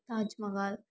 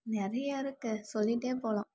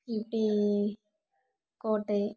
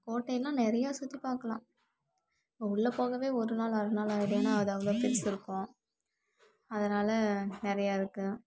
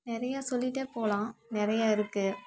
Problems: background sounds at intervals